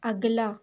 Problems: constant background noise